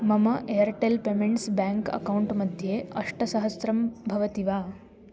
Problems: none marked